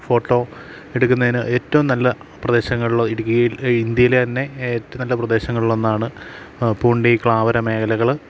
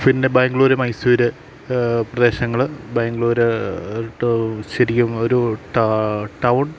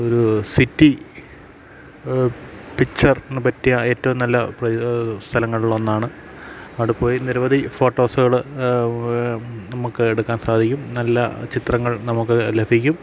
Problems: constant background noise